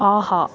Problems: constant background noise